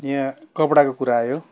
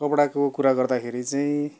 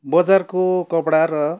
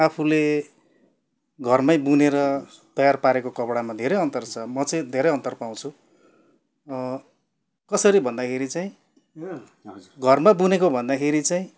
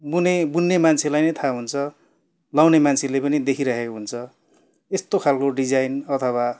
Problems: none marked